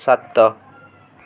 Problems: constant background noise